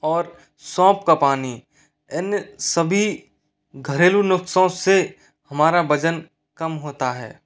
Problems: none marked